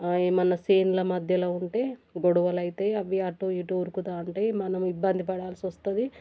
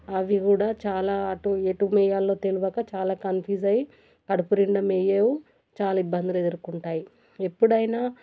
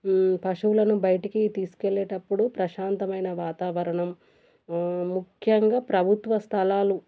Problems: none marked